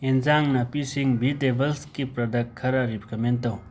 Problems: constant background noise